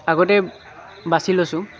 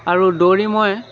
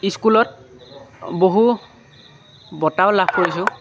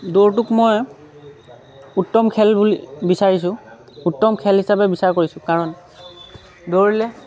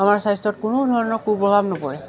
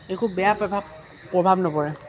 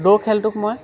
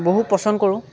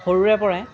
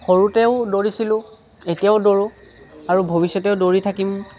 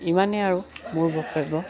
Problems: constant background noise